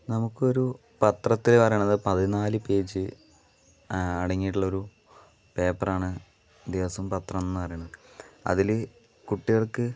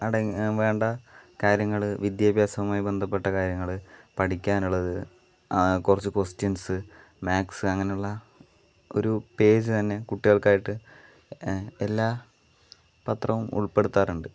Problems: none marked